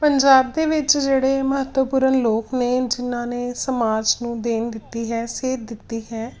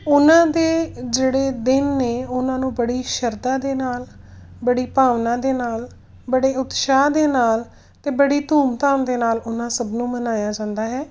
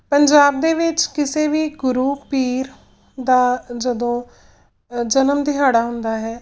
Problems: none marked